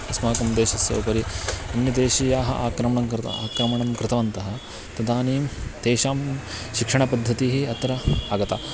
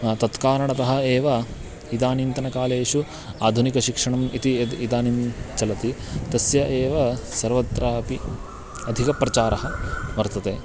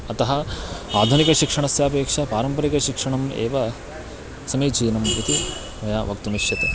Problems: constant background noise